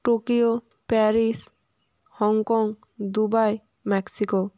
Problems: constant background noise